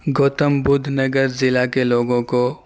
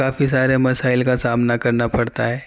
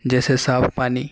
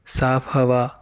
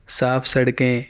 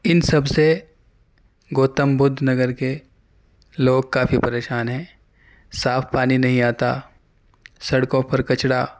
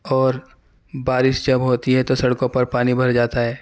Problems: none marked